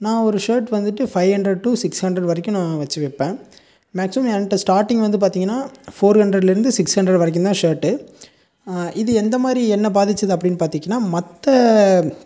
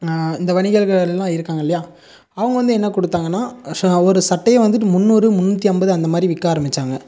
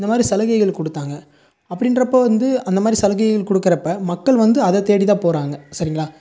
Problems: none marked